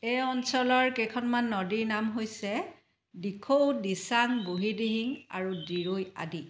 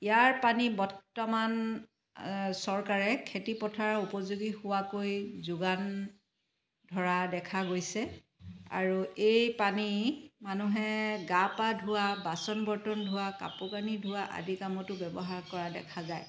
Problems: constant background noise